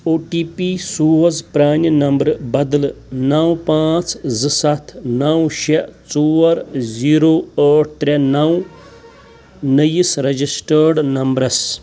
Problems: constant background noise